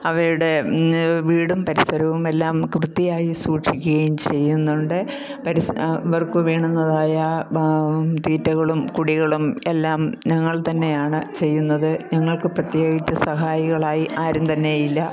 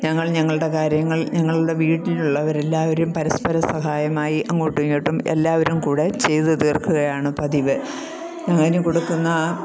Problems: none marked